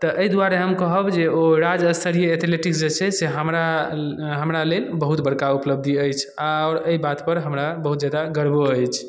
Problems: none marked